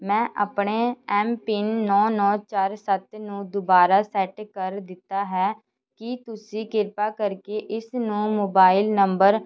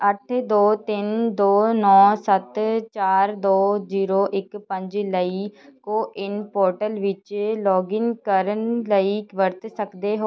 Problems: constant background noise